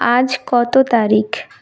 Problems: none marked